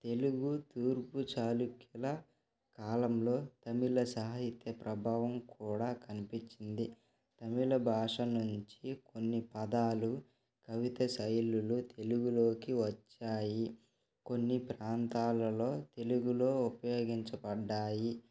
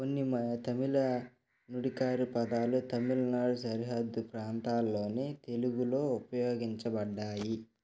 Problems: none marked